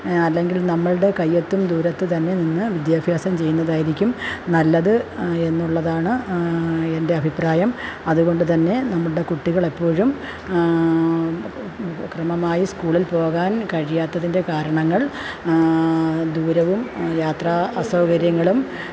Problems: constant background noise